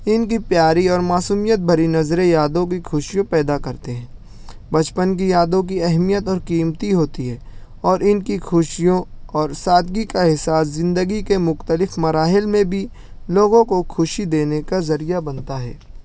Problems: none marked